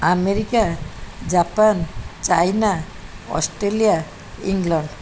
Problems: none marked